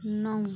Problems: background sounds at intervals